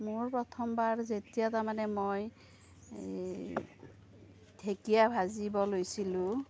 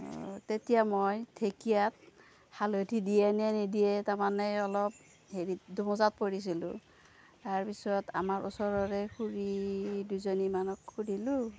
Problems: low volume